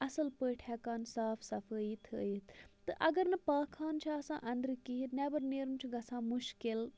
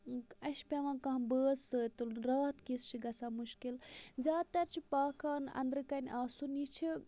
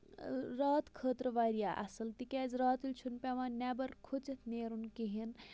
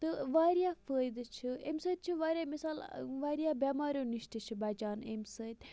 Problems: constant background noise, low volume